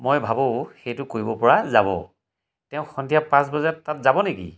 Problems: none marked